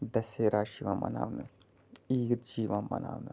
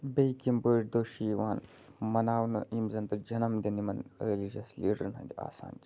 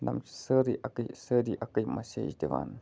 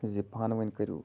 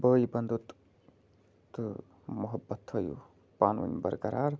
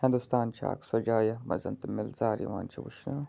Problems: constant background noise